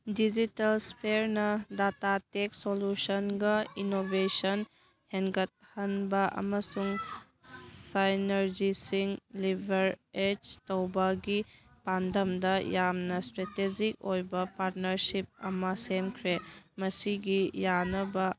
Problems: background conversations at intervals